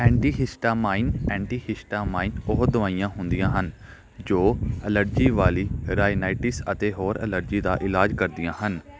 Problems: background conversations at intervals